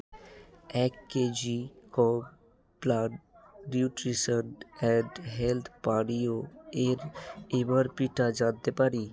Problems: constant background noise